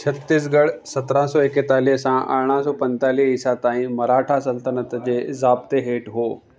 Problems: constant background noise